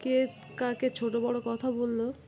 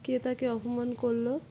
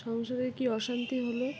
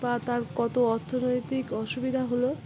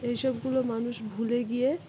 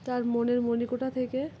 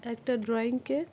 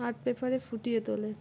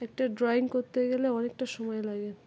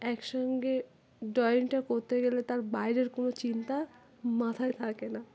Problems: constant background noise